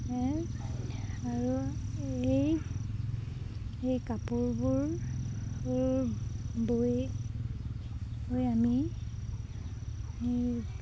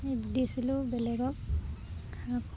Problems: none marked